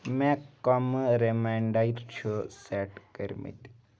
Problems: background sounds at intervals